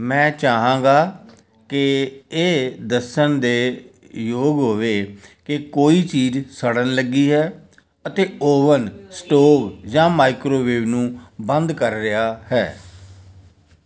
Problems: none marked